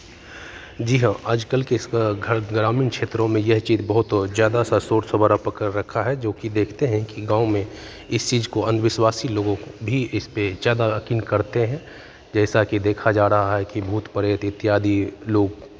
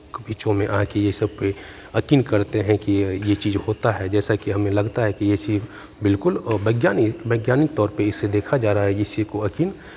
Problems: constant background noise, continuous background conversations, echo